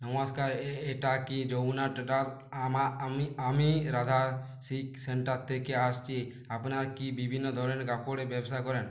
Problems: none marked